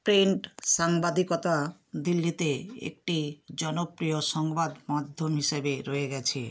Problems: background sounds at intervals